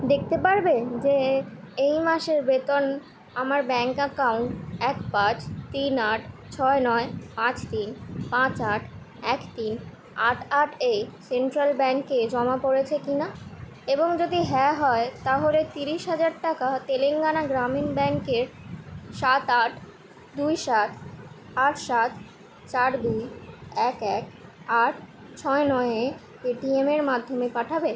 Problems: background sounds at intervals